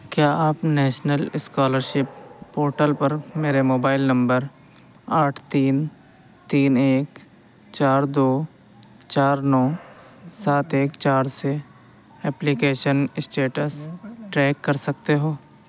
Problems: constant background noise